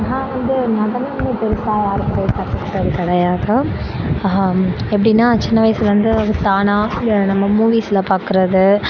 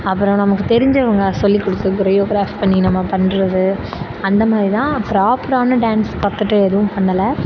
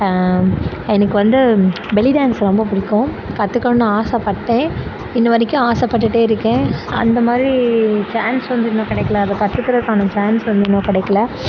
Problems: constant background noise